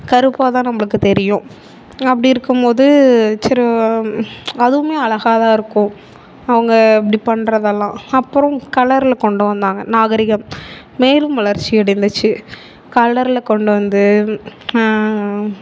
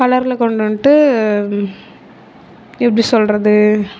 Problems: constant background noise